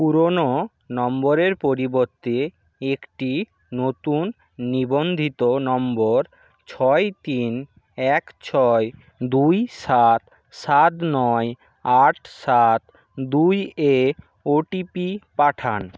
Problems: none marked